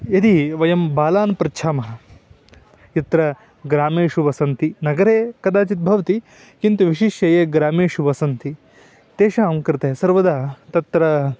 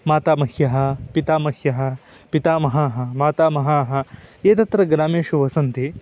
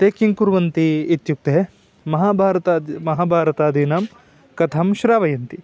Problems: background sounds at intervals